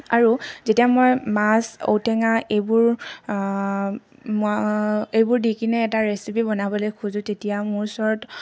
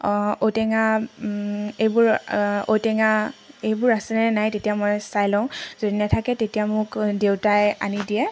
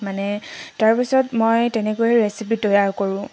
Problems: background sounds at intervals